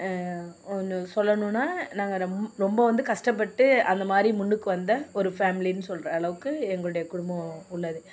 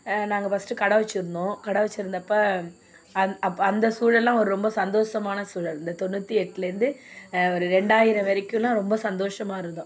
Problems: background sounds at intervals